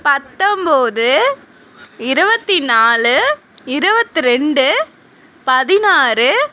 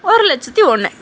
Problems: constant background noise